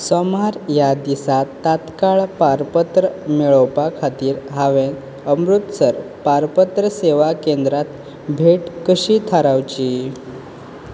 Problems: constant background noise